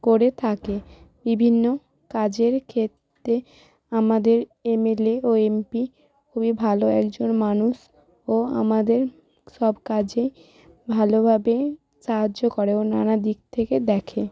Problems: background sounds at intervals